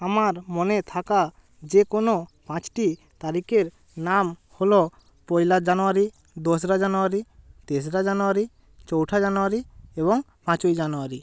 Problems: constant background noise